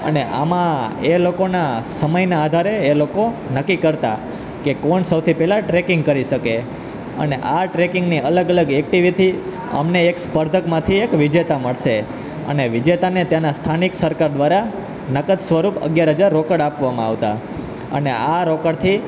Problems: none marked